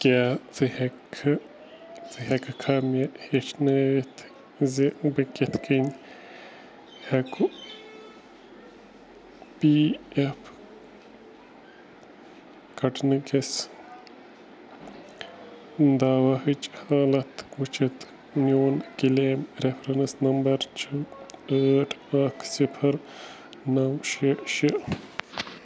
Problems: none marked